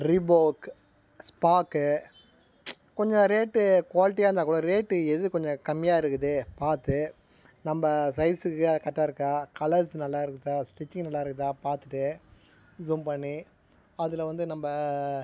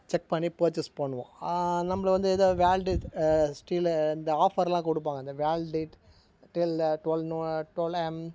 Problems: background sounds at intervals